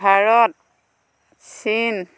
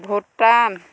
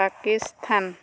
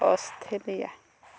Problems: constant background noise, background conversations at intervals